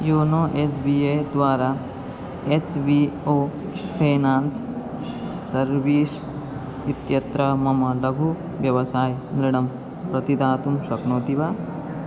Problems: constant background noise